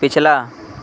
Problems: constant background noise